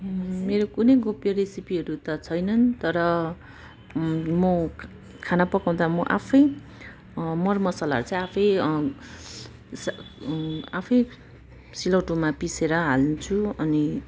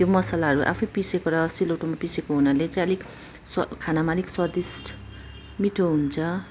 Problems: constant background noise